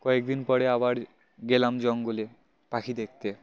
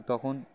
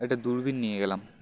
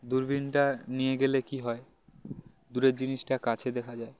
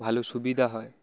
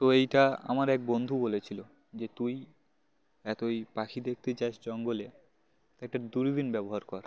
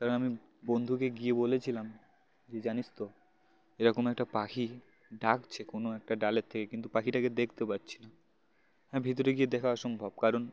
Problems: constant background noise, continuous background conversations